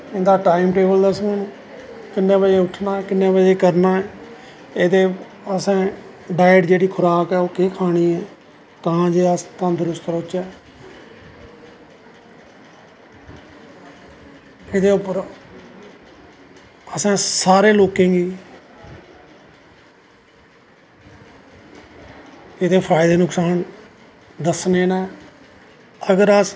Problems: echo